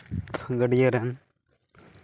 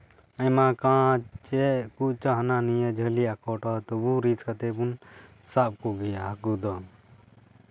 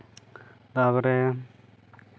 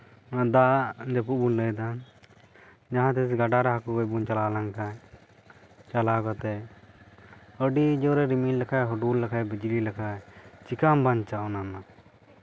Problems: background sounds at intervals, background conversations at intervals